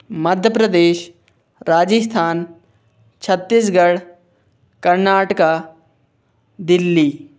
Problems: none marked